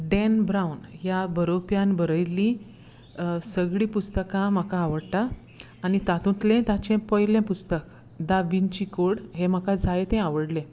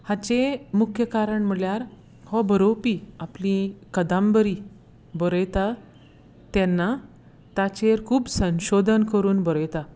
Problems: background sounds at intervals